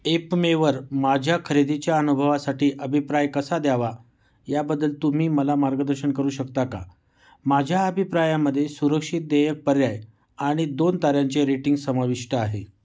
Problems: none marked